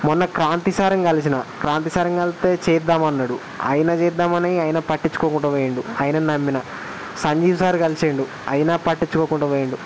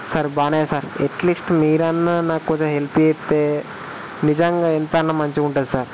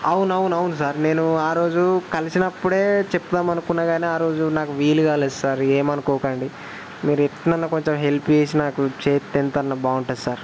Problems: constant background noise